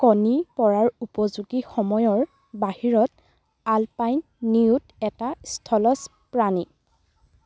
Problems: none marked